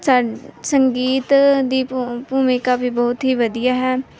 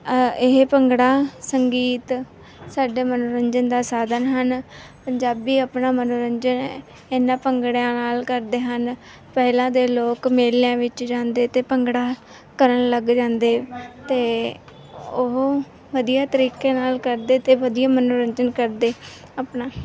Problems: background sounds at intervals, background conversations at intervals